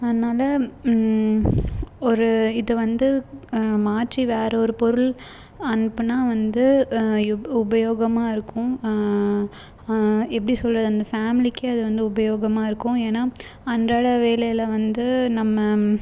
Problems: background sounds at intervals